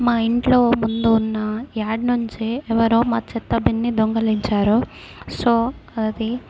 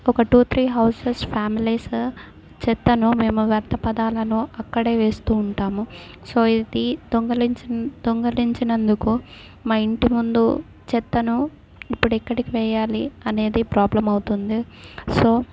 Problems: background sounds at intervals